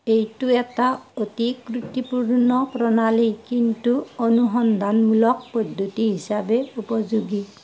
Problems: none marked